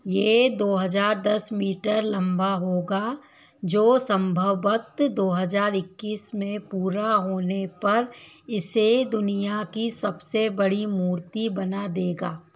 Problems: background sounds at intervals